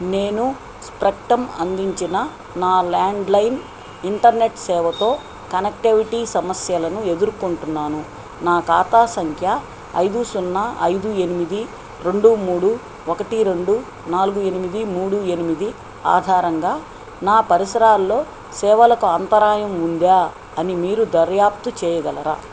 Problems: constant background noise